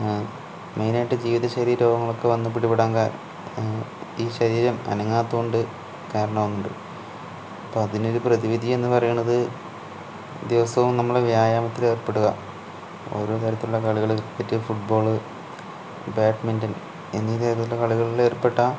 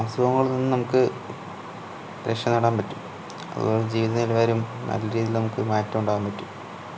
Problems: none marked